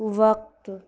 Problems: constant background noise